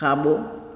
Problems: echo